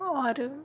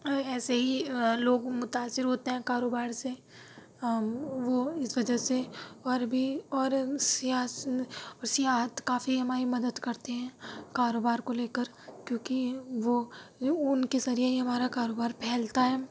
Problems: constant background noise